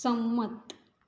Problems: none marked